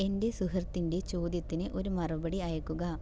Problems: low volume